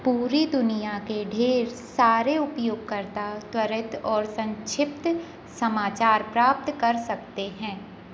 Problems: constant background noise